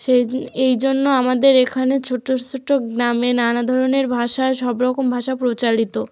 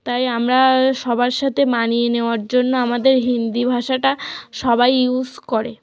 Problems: none marked